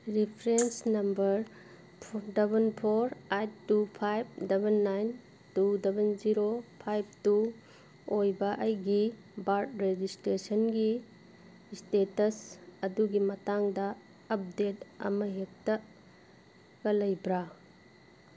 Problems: background sounds at intervals